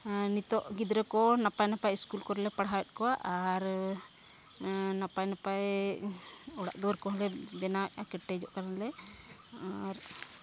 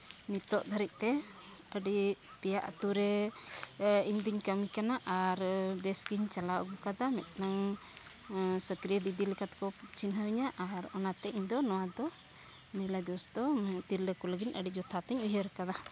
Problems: low volume